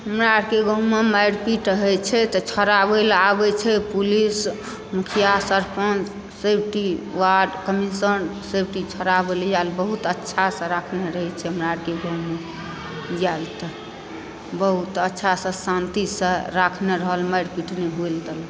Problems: background sounds at intervals